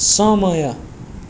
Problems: background sounds at intervals